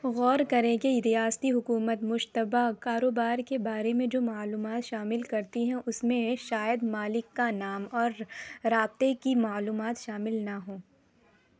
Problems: none marked